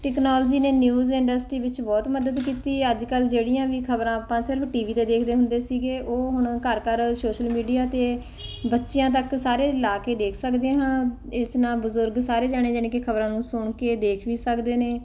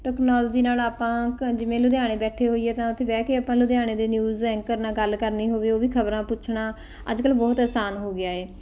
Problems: background conversations at intervals